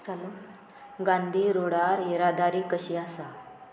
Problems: background sounds at intervals